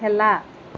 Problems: none marked